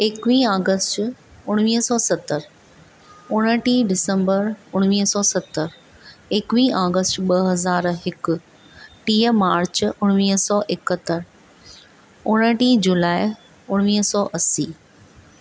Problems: constant background noise